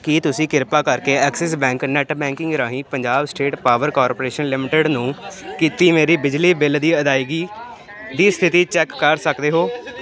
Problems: constant background noise